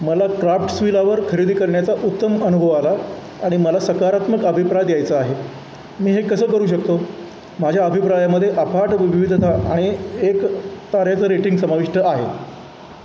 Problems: constant background noise